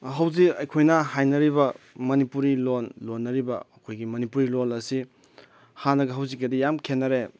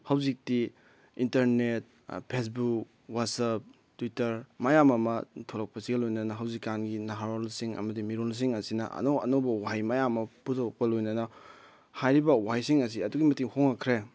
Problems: background sounds at intervals